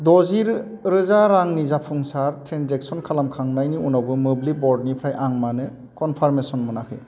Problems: constant background noise